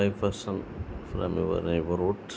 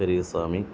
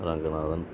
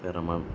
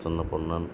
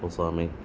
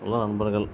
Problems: none marked